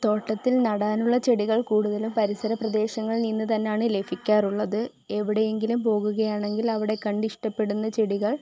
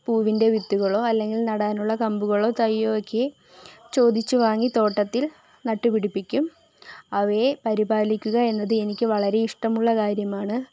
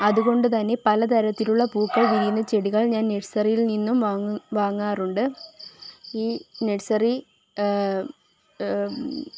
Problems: background sounds at intervals